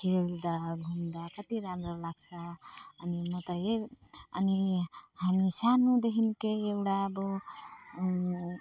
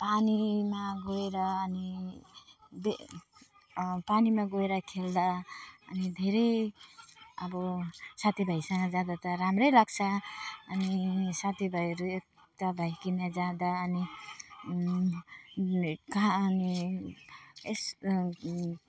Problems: none marked